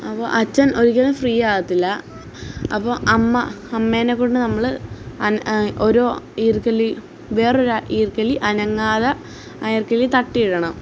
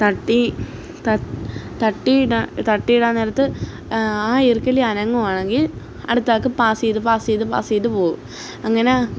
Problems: none marked